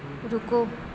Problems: constant background noise